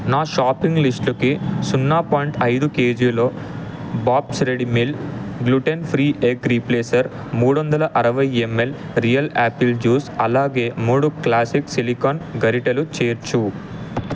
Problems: constant background noise